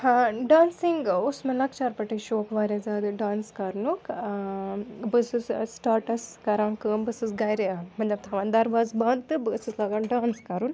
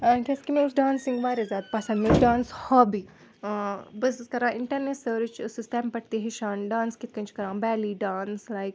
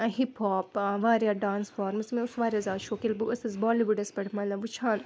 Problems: background sounds at intervals, background conversations at intervals